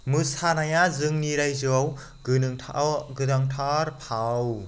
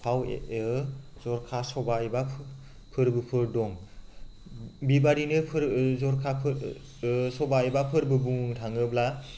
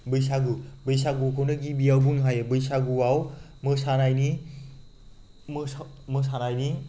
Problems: none marked